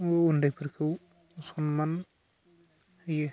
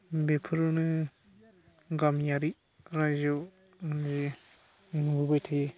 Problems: constant background noise